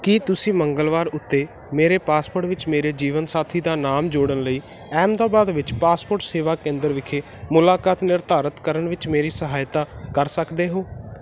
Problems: constant background noise